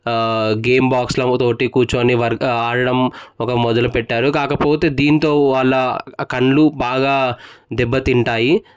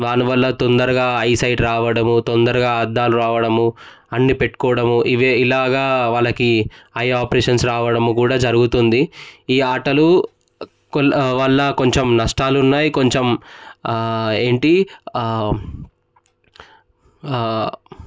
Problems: none marked